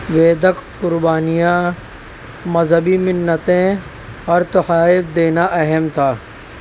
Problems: constant background noise